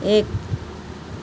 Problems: constant background noise